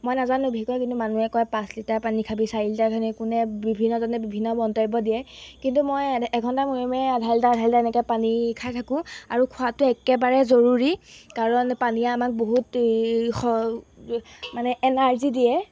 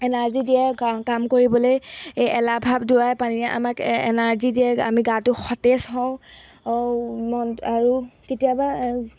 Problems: background sounds at intervals